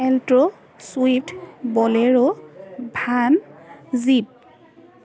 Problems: background conversations at intervals